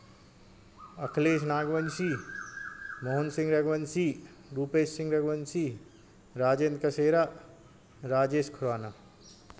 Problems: constant background noise